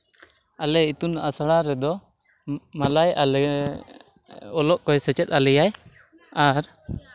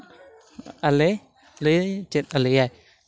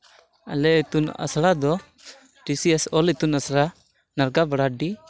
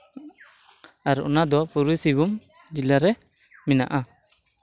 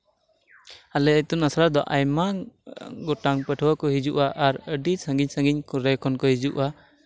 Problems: none marked